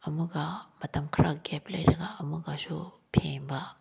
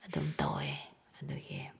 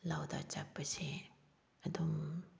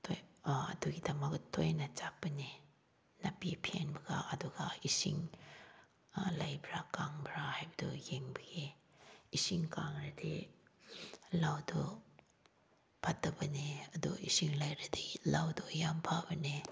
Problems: background sounds at intervals